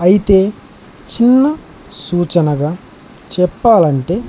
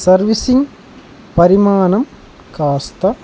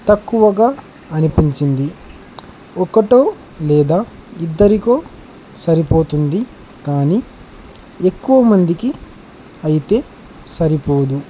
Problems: constant background noise